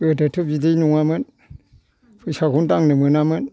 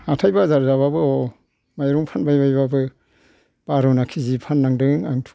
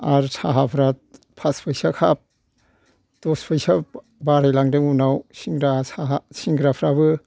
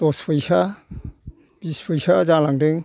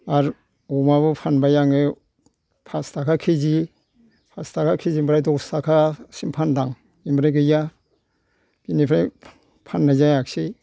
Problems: background sounds at intervals